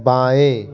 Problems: continuous background conversations